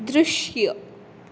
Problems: background sounds at intervals